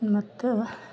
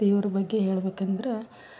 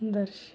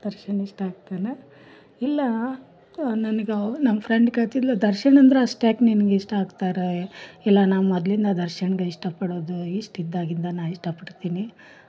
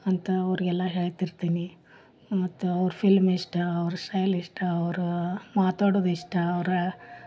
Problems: none marked